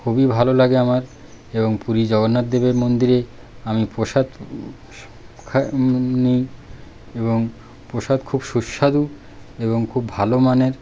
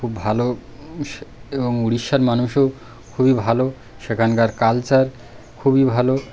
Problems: none marked